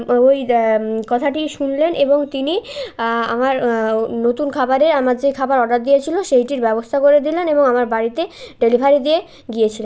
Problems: continuous background conversations